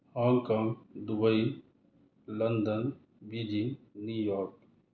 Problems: none marked